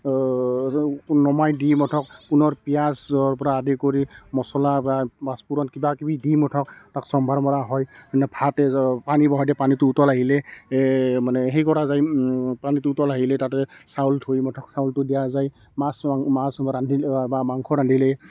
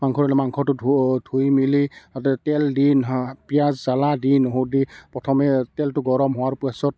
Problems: constant background noise, continuous background conversations